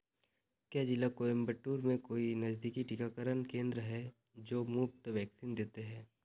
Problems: low volume